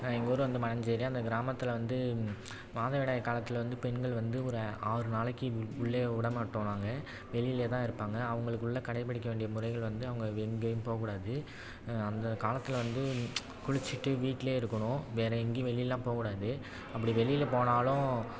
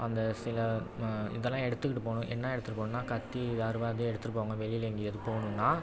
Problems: constant background noise, background conversations at intervals